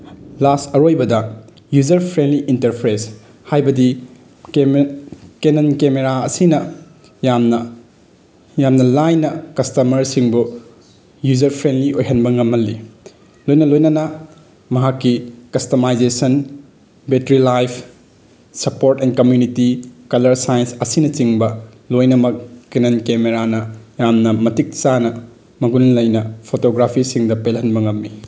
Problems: background sounds at intervals